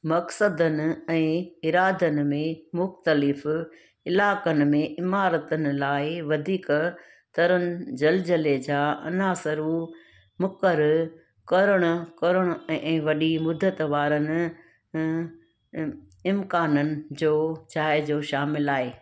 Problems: constant background noise